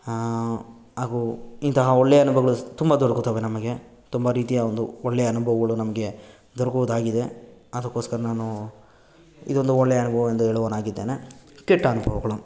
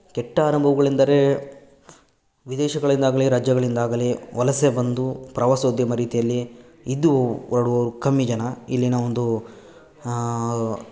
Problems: none marked